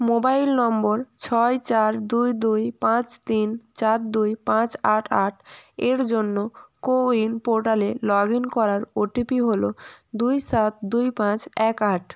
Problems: background sounds at intervals